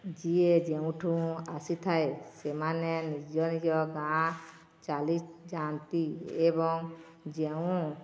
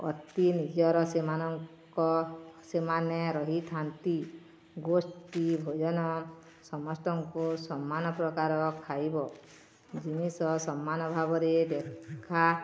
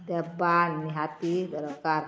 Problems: none marked